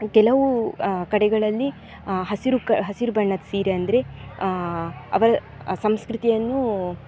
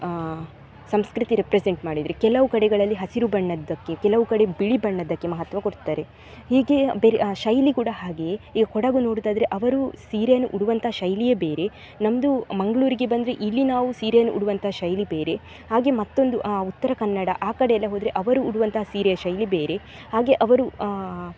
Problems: none marked